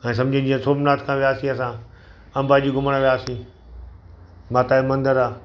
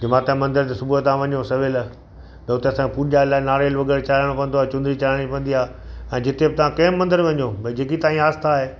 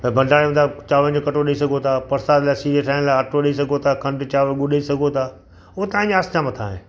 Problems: constant background noise, echo